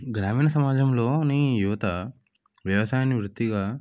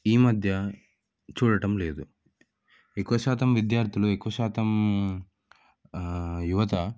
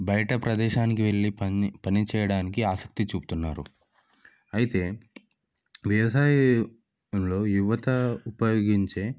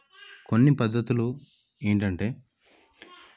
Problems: none marked